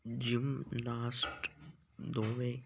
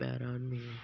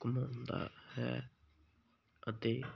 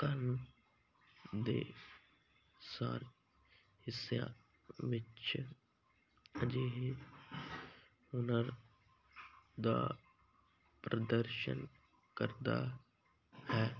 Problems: constant background noise